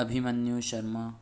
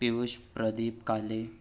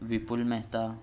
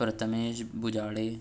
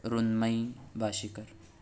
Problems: none marked